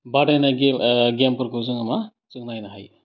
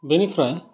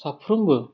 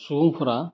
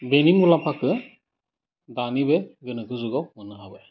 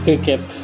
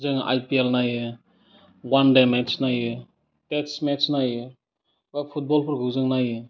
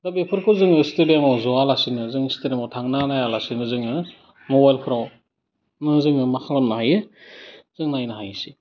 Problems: constant background noise